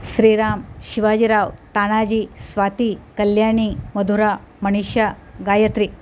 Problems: none marked